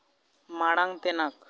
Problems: none marked